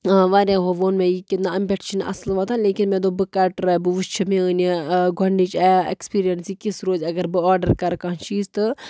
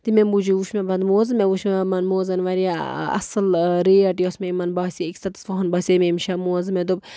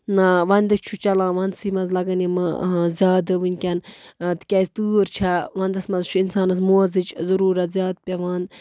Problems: none marked